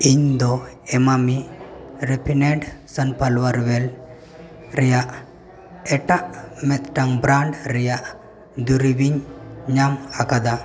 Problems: none marked